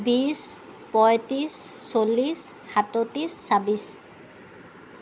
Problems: none marked